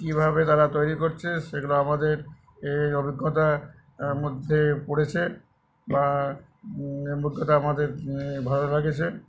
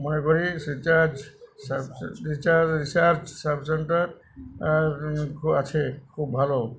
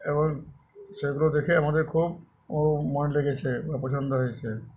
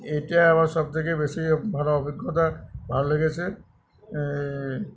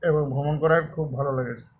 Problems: background conversations at intervals